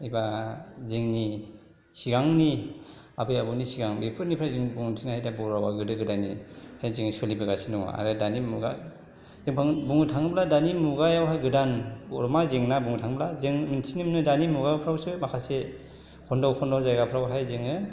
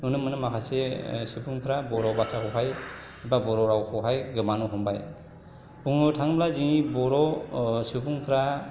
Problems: background conversations at intervals